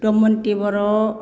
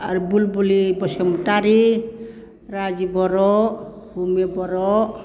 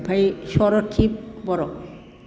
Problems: none marked